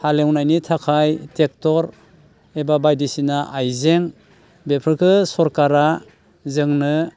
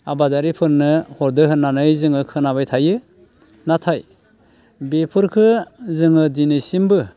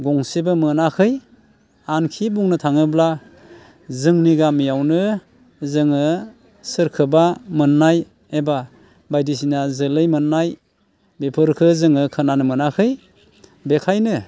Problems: constant background noise